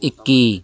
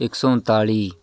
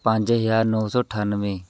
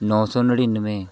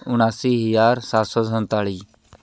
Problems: continuous background conversations